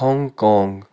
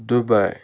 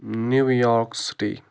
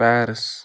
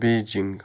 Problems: none marked